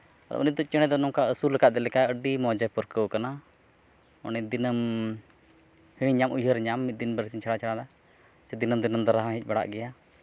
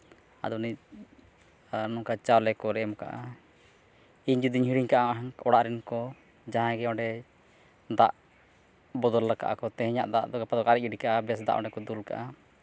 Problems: none marked